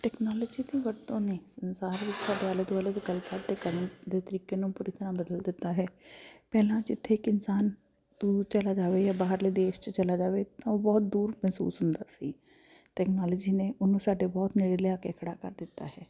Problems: constant background noise